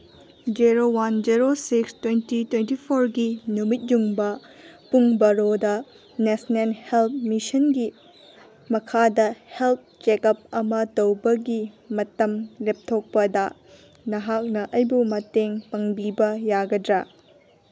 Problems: background sounds at intervals